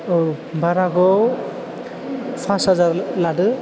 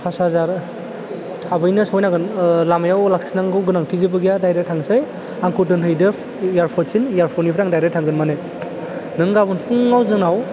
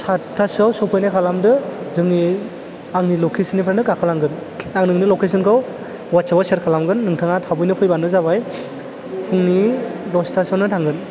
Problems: low volume